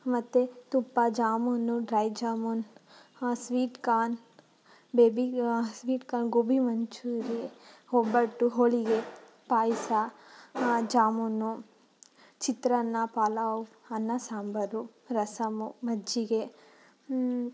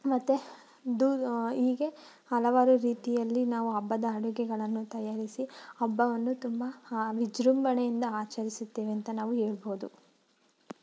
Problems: background sounds at intervals